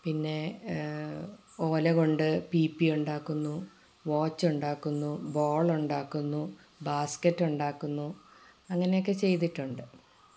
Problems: low volume